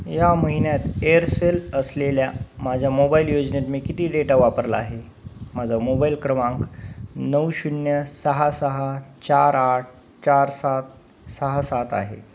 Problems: background sounds at intervals